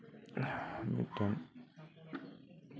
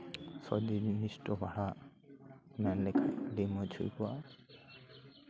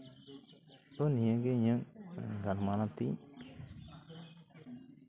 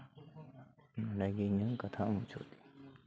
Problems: continuous background conversations